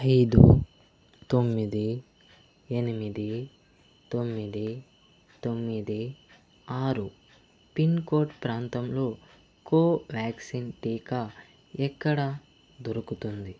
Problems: constant background noise